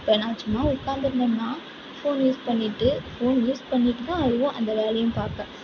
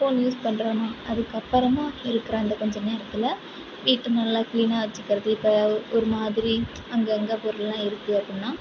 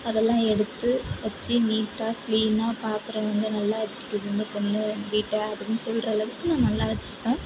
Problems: background sounds at intervals, background conversations at intervals, low volume